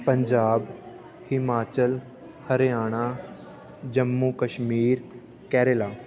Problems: continuous background conversations